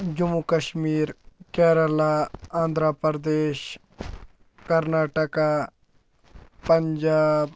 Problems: low volume